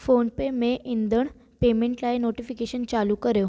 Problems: constant background noise, echo